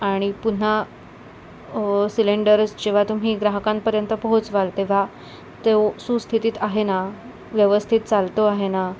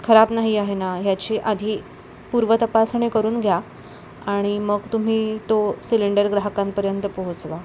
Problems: none marked